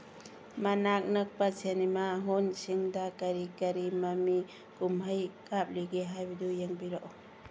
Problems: background sounds at intervals